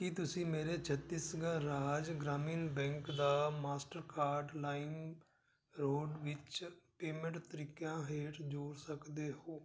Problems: background sounds at intervals